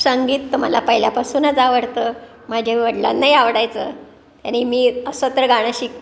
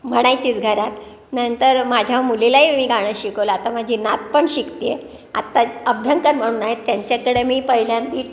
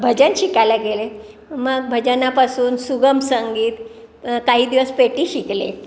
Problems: constant background noise